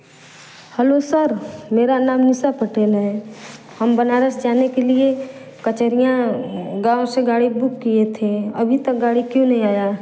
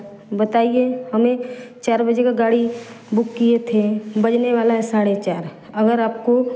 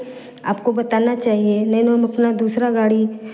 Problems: constant background noise